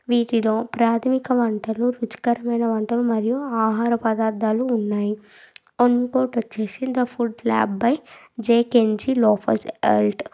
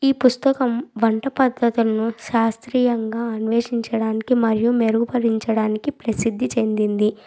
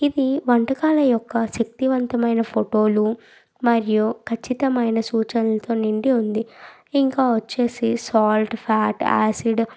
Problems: background sounds at intervals